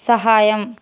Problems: none marked